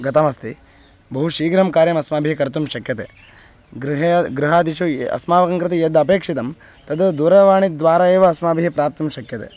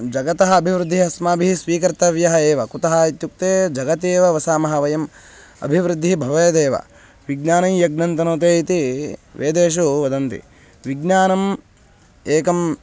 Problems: constant background noise